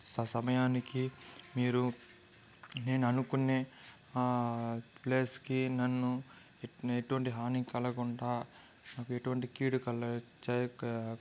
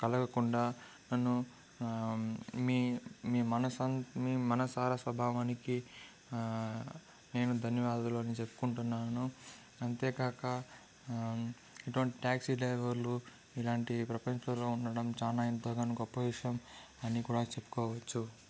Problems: constant background noise